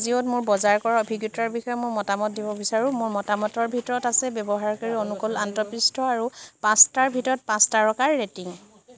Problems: none marked